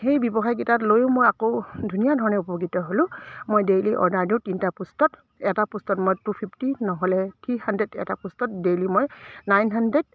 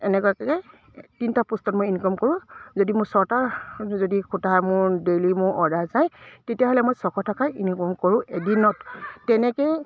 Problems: none marked